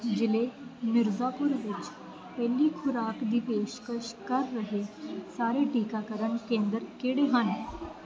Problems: constant background noise